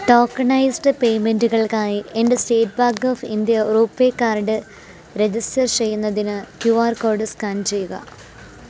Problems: constant background noise